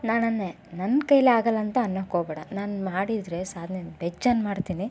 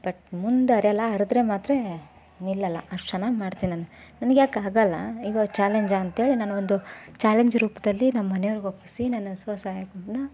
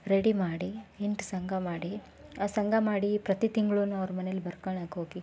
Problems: none marked